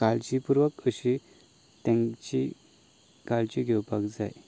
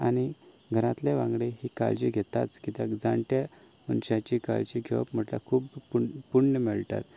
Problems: none marked